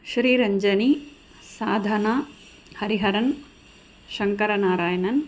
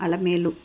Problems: none marked